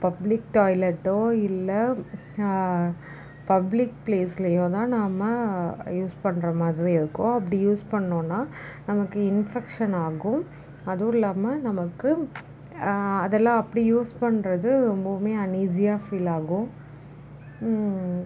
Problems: none marked